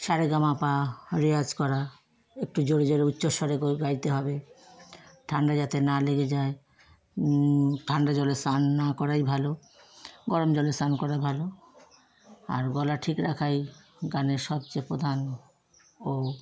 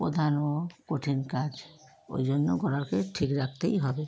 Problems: none marked